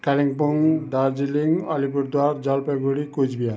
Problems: background sounds at intervals, background conversations at intervals